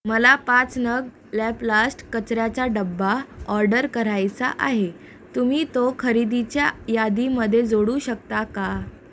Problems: background sounds at intervals